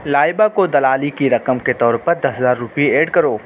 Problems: constant background noise